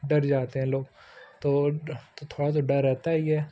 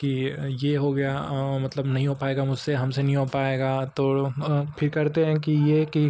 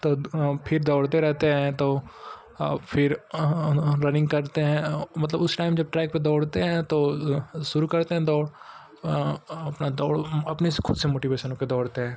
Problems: background sounds at intervals